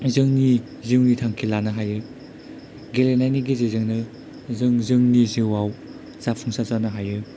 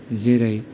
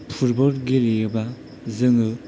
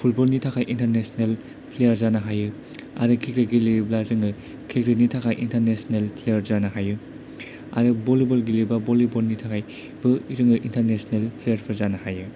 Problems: none marked